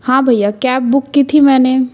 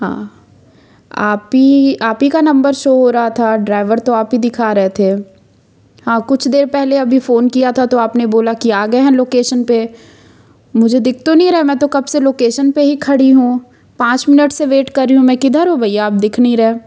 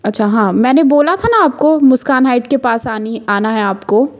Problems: constant background noise